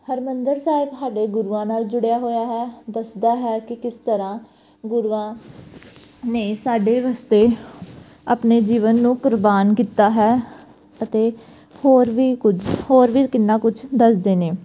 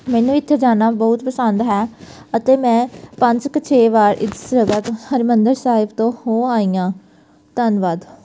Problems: background sounds at intervals